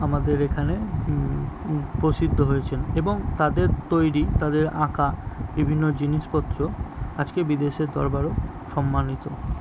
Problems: constant background noise, background conversations at intervals